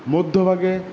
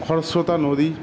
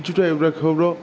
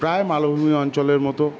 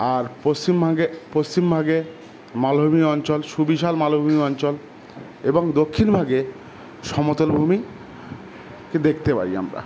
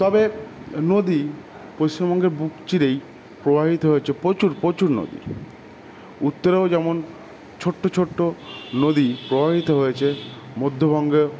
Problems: constant background noise